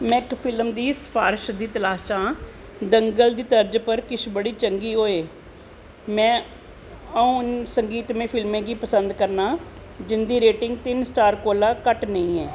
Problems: constant background noise